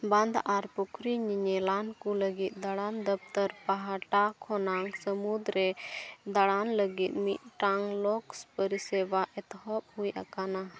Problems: background sounds at intervals, continuous background conversations